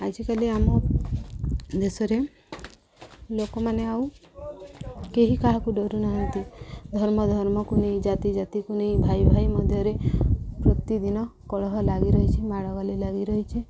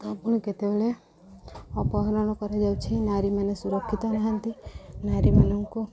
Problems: constant background noise, background conversations at intervals